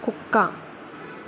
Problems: constant background noise